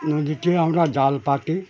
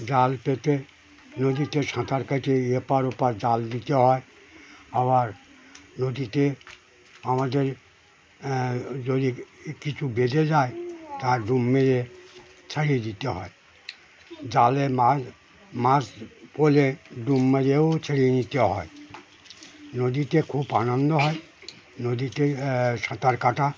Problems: constant background noise, continuous background conversations